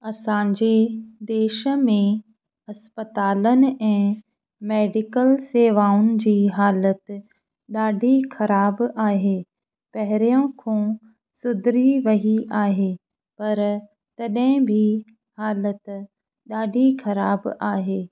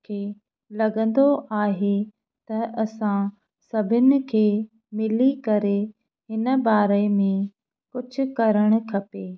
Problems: none marked